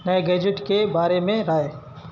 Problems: constant background noise